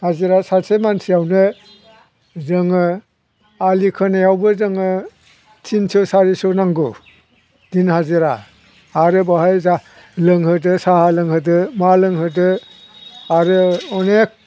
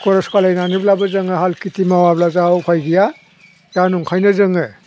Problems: none marked